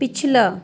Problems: background conversations at intervals